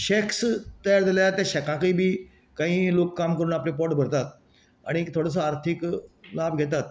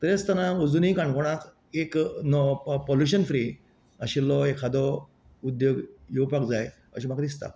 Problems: none marked